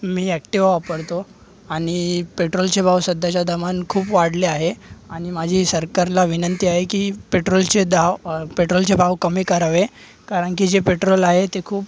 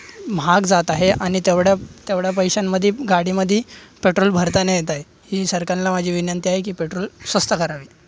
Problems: none marked